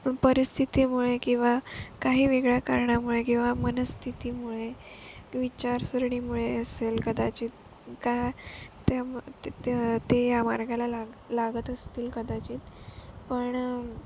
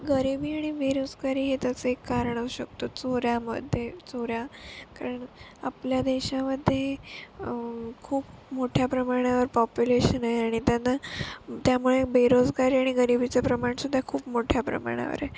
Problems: constant background noise